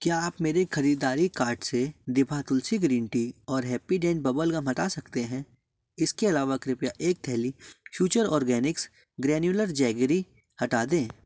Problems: background sounds at intervals